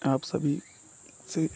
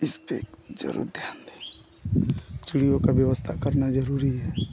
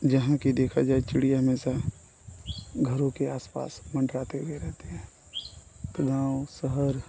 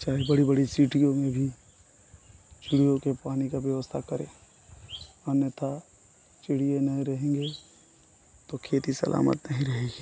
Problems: none marked